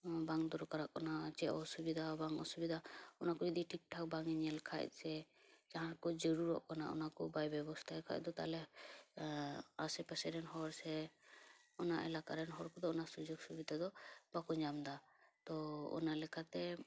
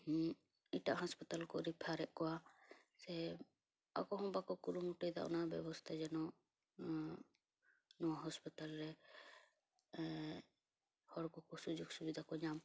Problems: low volume